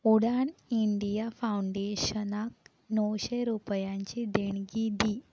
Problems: constant background noise